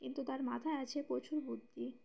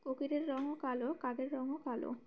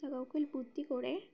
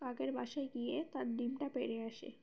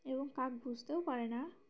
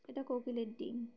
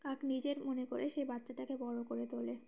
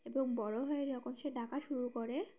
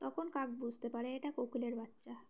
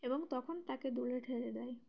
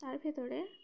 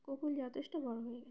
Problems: background sounds at intervals, background conversations at intervals